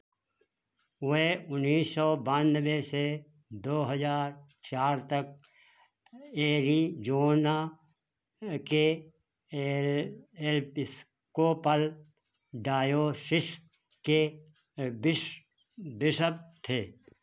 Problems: none marked